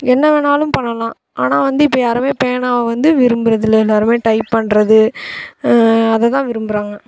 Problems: constant background noise